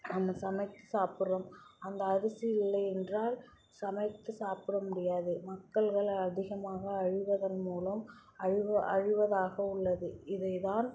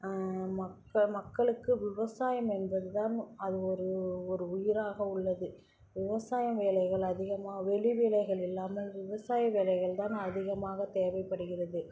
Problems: background sounds at intervals, background conversations at intervals